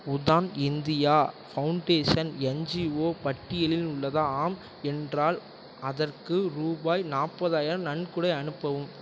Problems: none marked